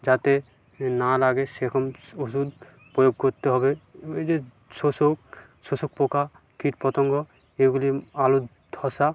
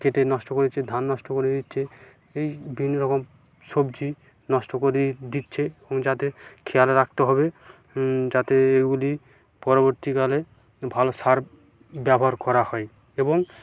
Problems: background sounds at intervals